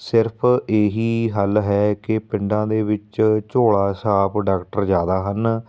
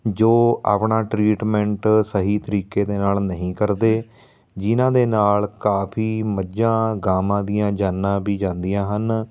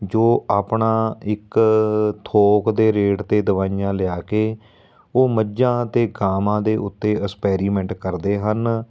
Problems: background sounds at intervals